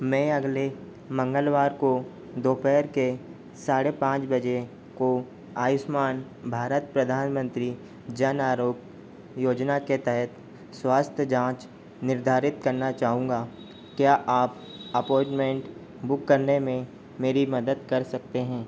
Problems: constant background noise